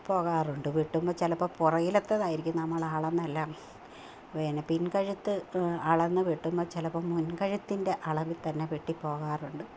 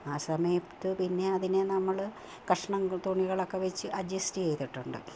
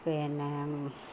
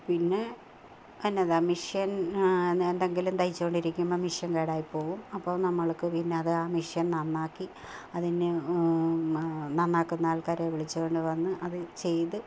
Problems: low volume